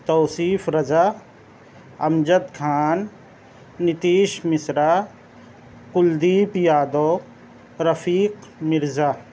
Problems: none marked